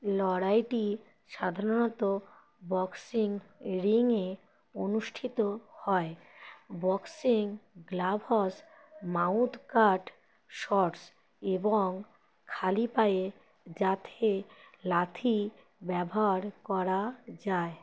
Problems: none marked